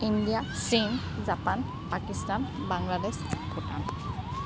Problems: constant background noise, background conversations at intervals